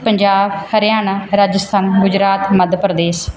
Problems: background sounds at intervals